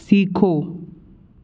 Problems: background sounds at intervals